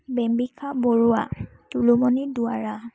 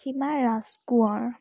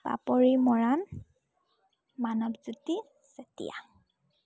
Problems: none marked